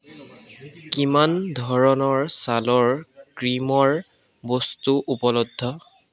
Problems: constant background noise